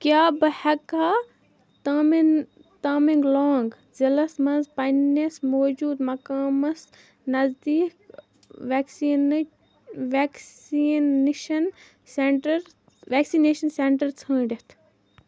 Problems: none marked